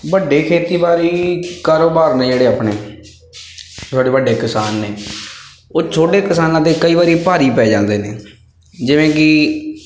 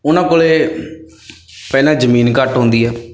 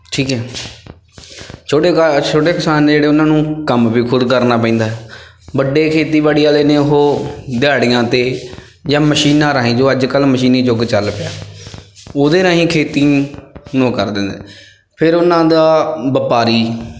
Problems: background sounds at intervals